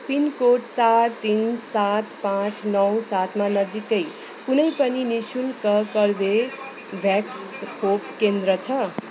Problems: constant background noise, continuous background conversations